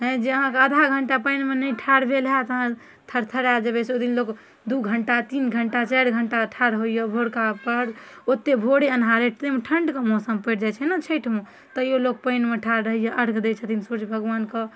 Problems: none marked